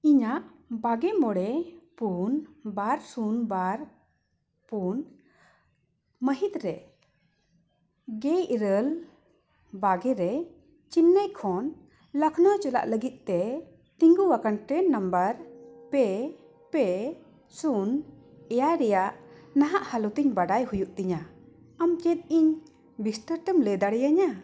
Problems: background sounds at intervals